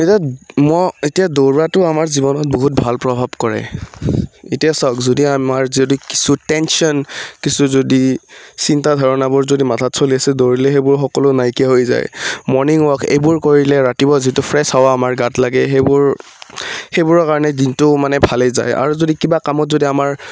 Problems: background sounds at intervals